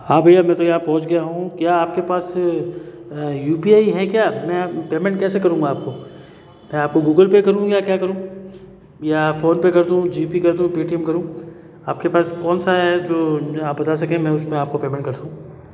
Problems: constant background noise, continuous background conversations, echo